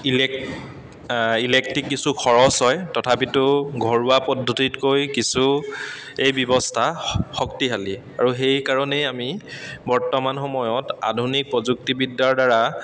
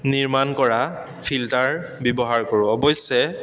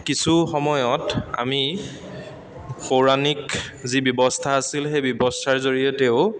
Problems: constant background noise